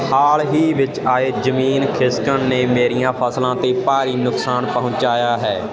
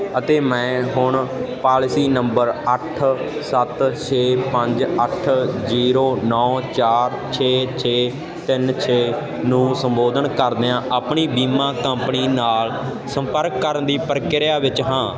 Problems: constant background noise